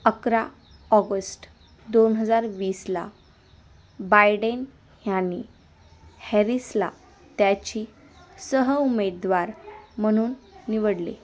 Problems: constant background noise, continuous background conversations